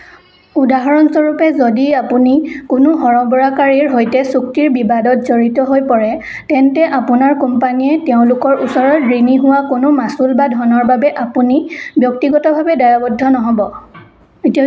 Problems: background conversations at intervals